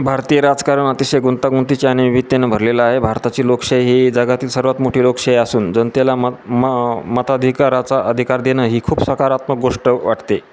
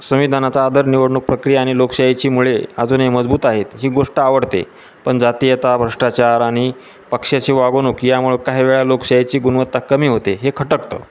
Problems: constant background noise, continuous background conversations